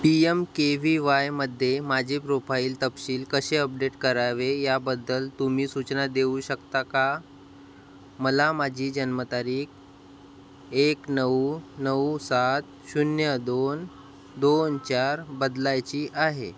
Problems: none marked